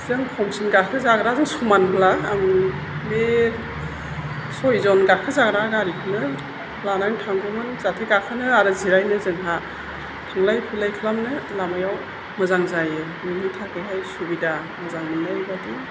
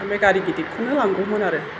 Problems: constant background noise